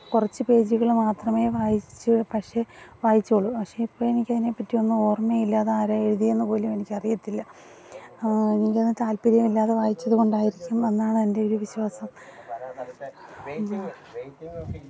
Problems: background sounds at intervals, background conversations at intervals